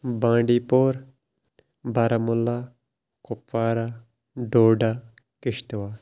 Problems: background sounds at intervals